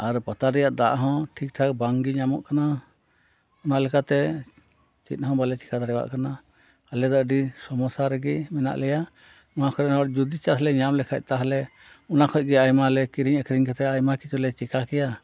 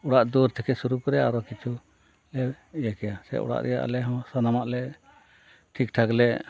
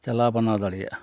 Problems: constant background noise